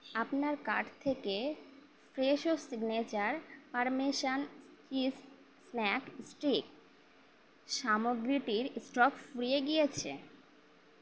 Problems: constant background noise